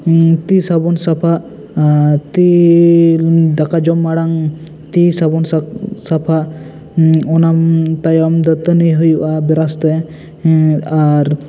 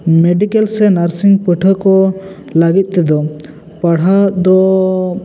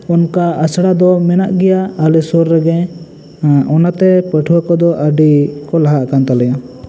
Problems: constant background noise, echo